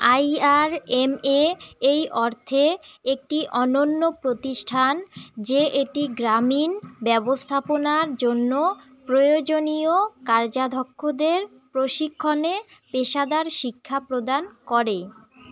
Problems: constant background noise, background conversations at intervals